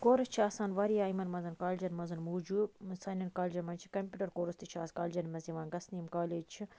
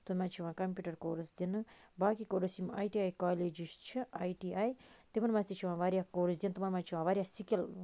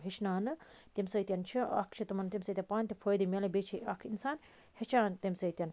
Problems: constant background noise